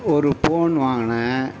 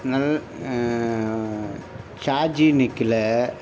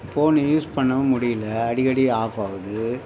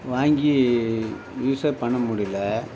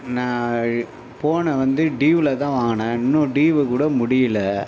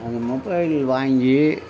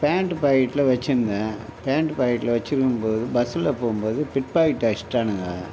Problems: constant background noise